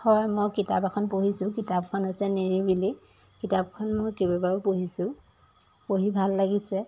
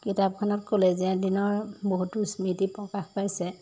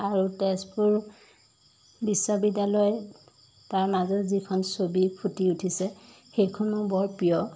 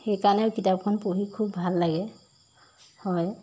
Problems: constant background noise